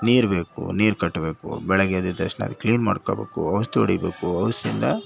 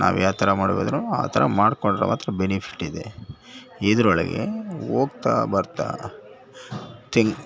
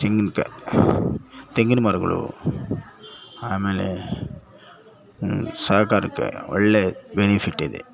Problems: background sounds at intervals